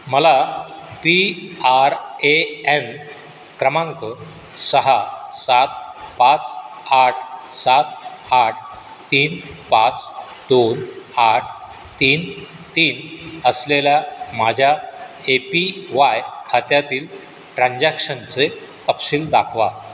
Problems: none marked